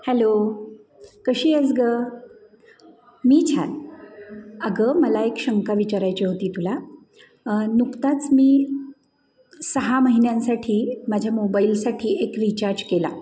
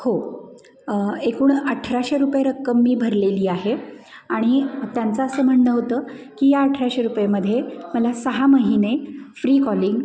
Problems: background sounds at intervals, background conversations at intervals